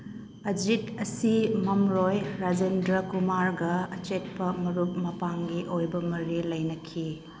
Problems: background sounds at intervals